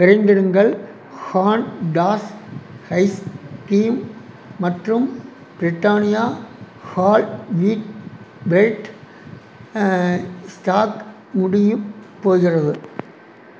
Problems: constant background noise